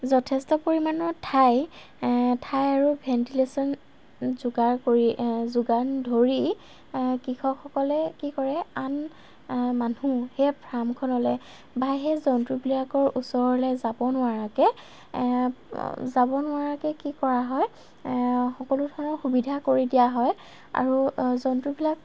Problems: constant background noise